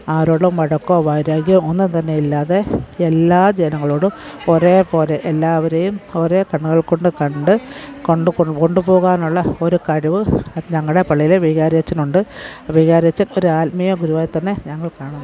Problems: background sounds at intervals